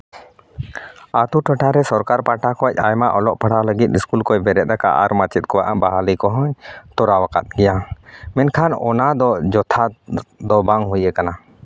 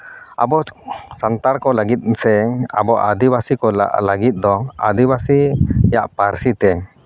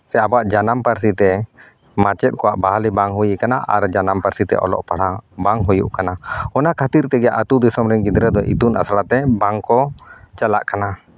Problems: none marked